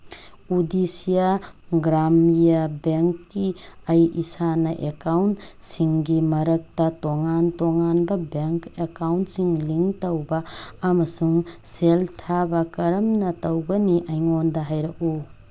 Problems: background sounds at intervals